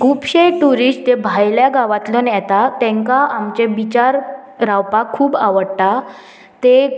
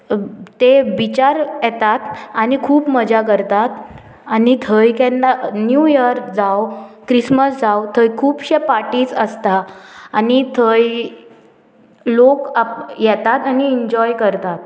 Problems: none marked